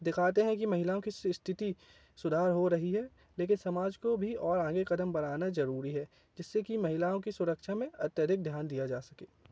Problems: none marked